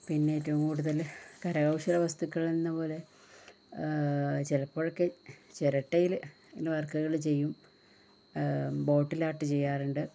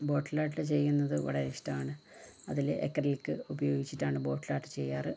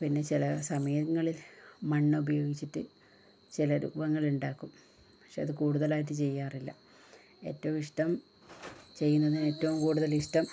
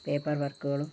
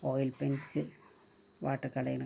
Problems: low volume